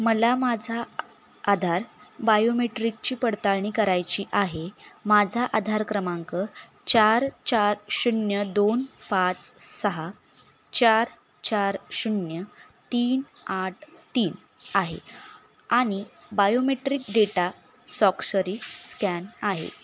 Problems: background sounds at intervals